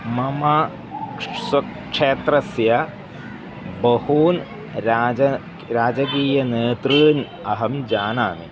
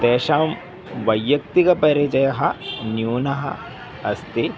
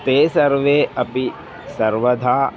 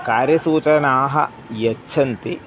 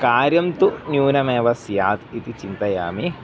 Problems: background sounds at intervals